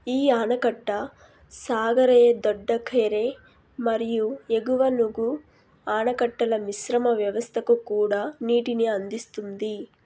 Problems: none marked